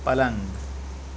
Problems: constant background noise